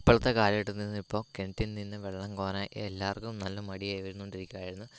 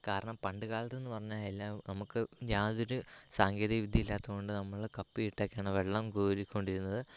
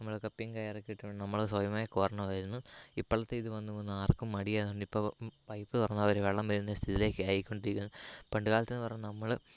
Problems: constant background noise, low volume